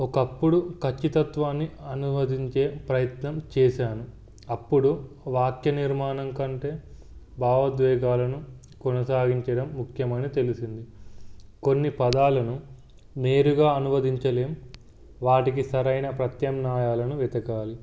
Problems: background sounds at intervals